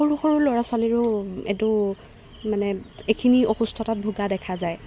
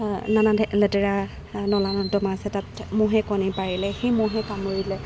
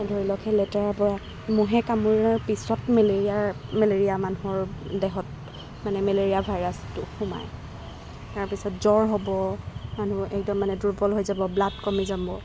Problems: background sounds at intervals